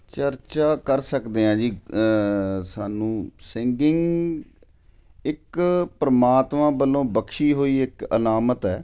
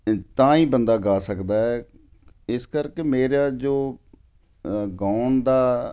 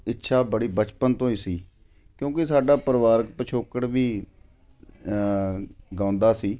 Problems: none marked